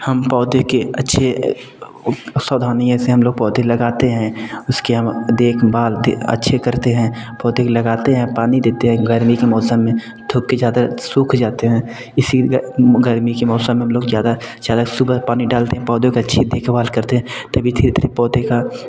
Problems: background sounds at intervals